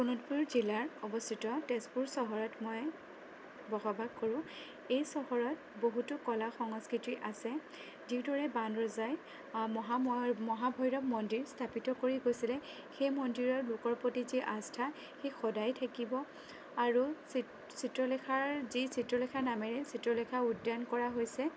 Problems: none marked